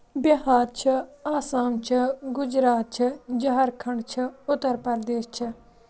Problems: none marked